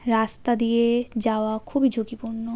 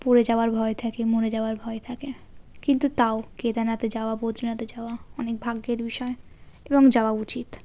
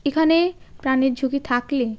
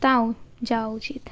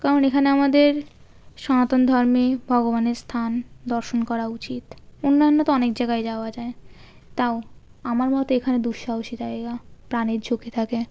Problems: background sounds at intervals